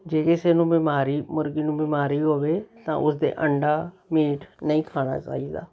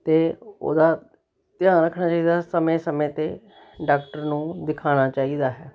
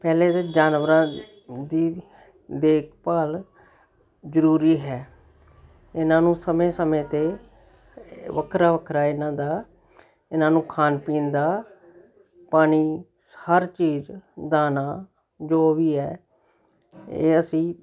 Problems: none marked